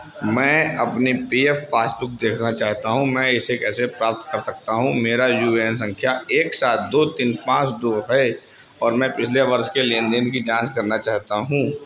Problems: constant background noise